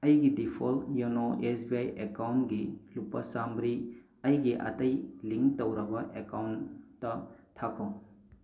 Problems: none marked